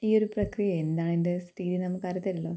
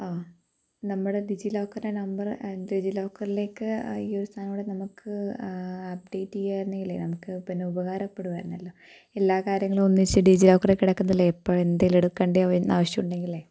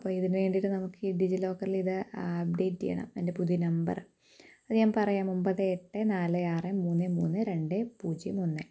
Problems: low volume